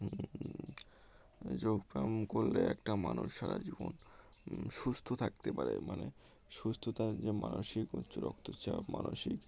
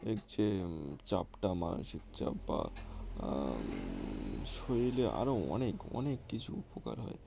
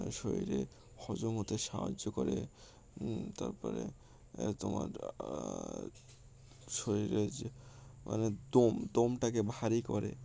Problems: constant background noise